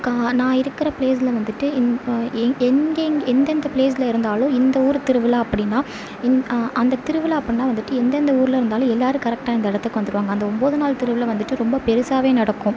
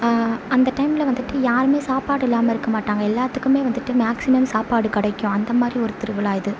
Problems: none marked